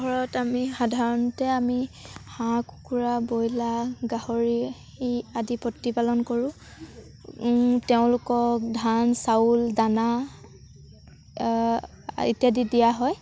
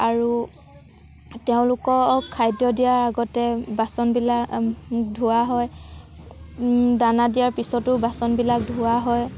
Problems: none marked